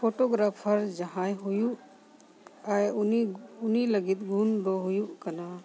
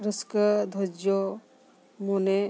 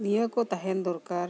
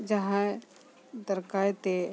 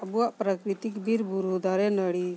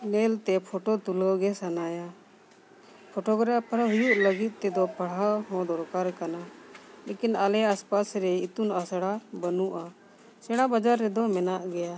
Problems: background conversations at intervals